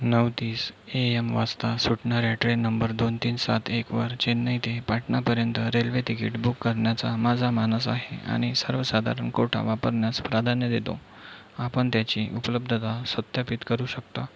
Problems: none marked